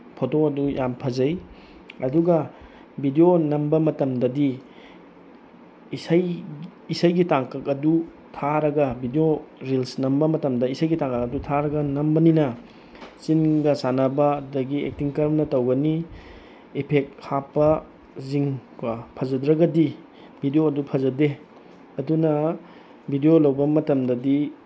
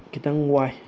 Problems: background sounds at intervals